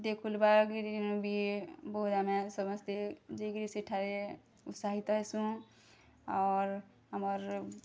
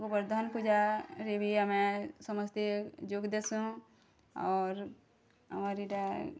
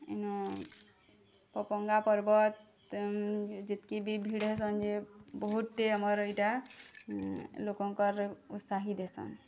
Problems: none marked